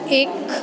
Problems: constant background noise